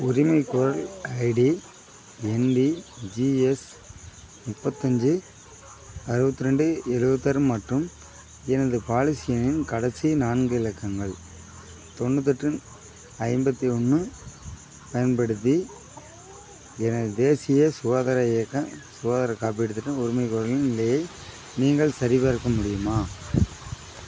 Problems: constant background noise